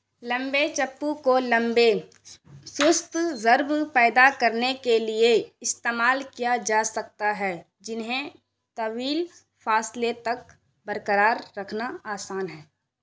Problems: constant background noise